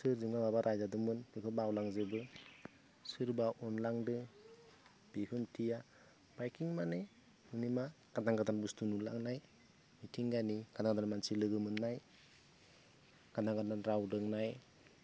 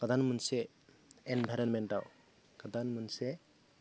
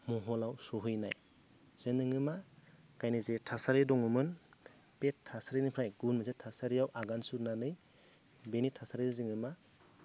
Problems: none marked